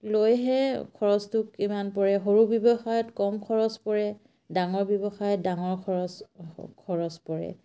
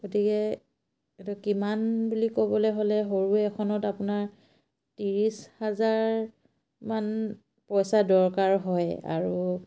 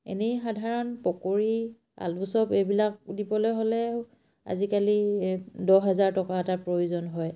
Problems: none marked